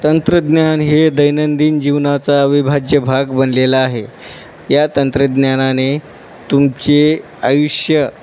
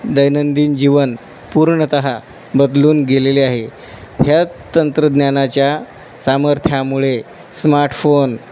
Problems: constant background noise